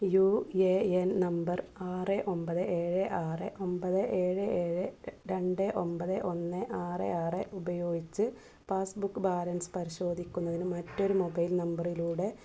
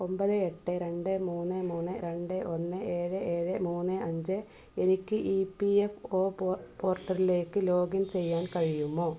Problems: background sounds at intervals, low volume